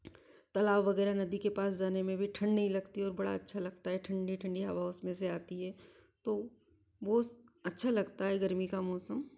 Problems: none marked